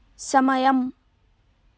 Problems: none marked